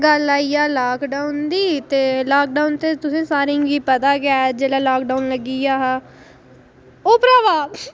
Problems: background conversations at intervals